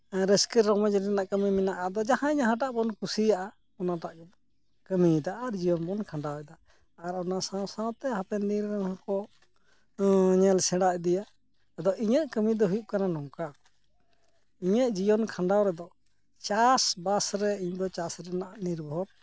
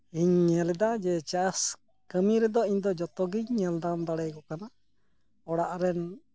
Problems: background sounds at intervals